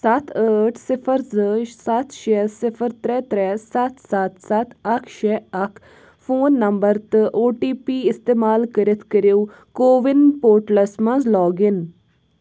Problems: background sounds at intervals